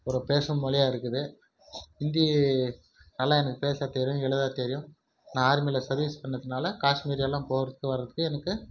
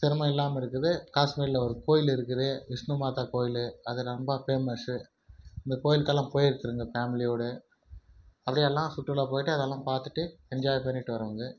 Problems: none marked